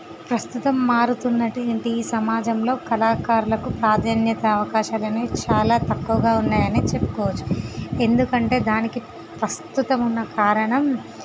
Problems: constant background noise